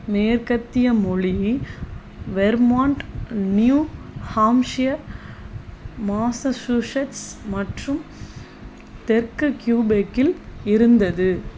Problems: constant background noise